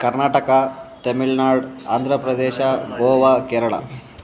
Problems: background conversations at intervals